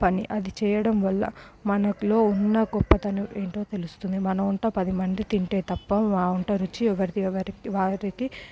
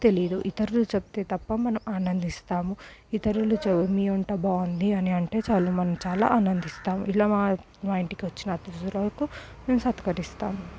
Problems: low volume